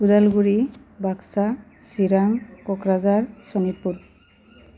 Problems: none marked